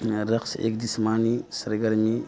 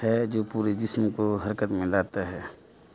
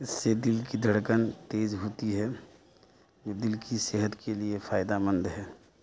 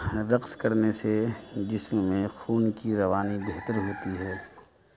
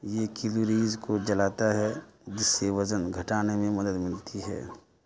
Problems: continuous background conversations, low volume